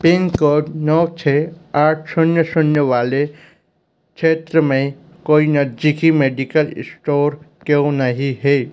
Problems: constant background noise, background conversations at intervals